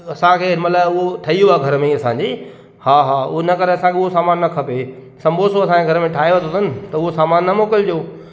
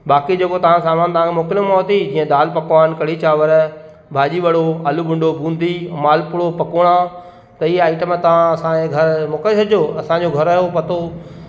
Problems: constant background noise, echo